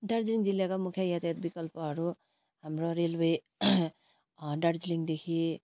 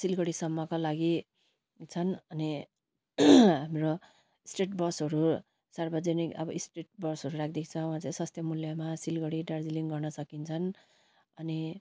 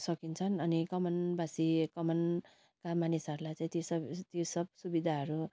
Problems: constant background noise